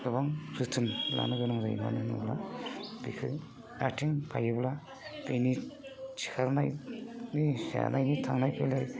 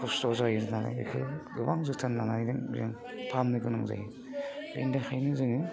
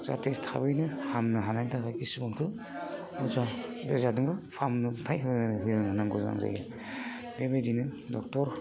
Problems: constant background noise